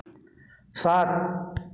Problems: background sounds at intervals, echo